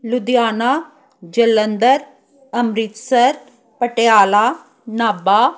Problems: background sounds at intervals